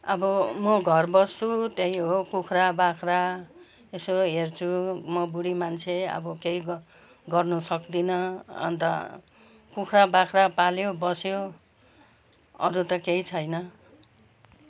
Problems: none marked